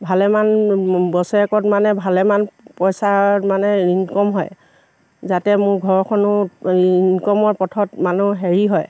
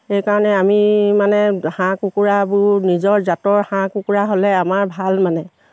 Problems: none marked